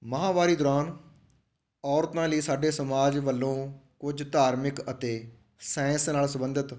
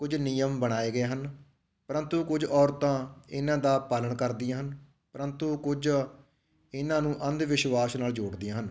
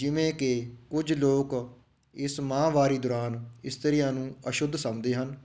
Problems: background sounds at intervals